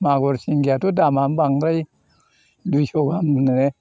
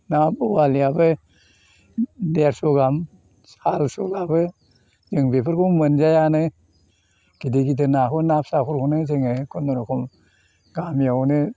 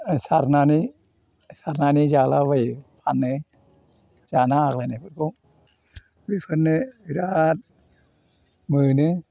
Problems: constant background noise